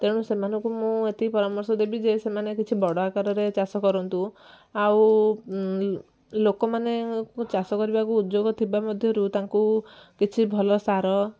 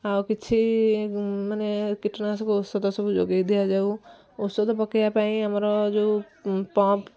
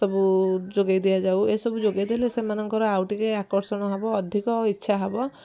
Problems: none marked